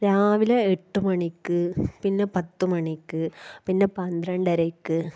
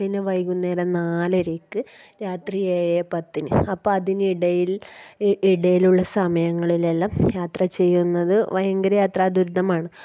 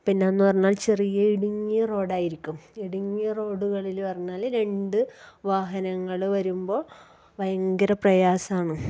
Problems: background sounds at intervals